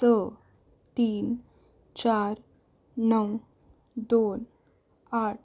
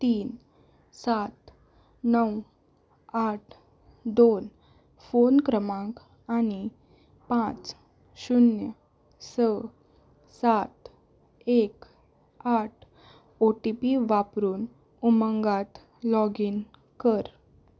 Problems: none marked